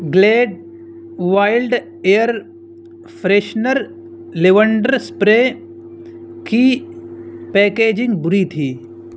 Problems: constant background noise